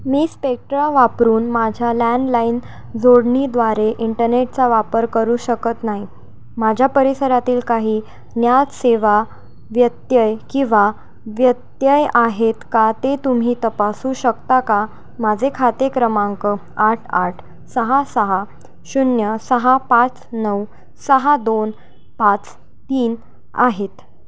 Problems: constant background noise